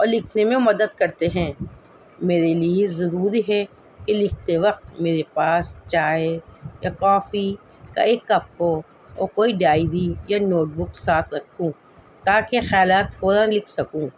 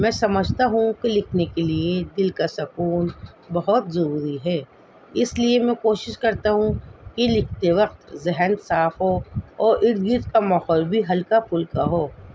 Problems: constant background noise